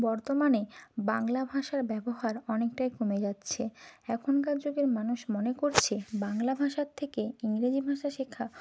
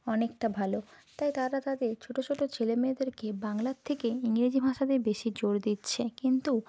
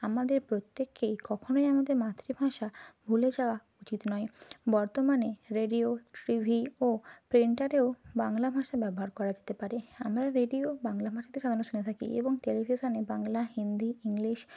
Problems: constant background noise